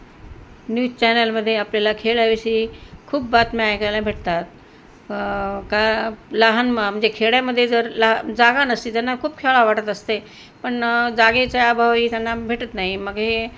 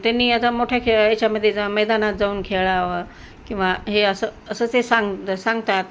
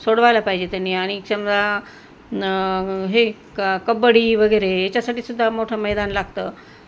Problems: constant background noise